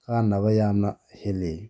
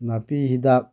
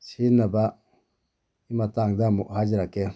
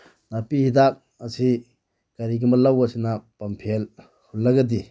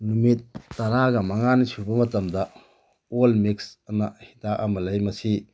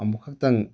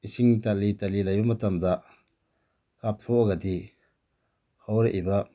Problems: none marked